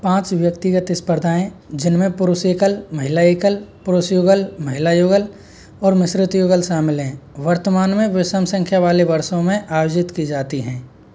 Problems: background sounds at intervals